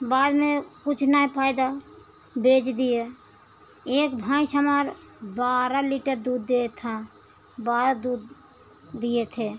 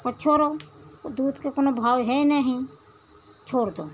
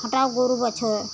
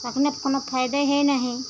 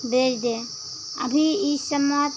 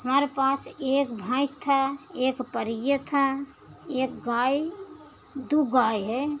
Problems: constant background noise